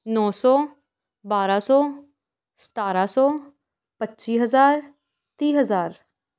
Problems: background sounds at intervals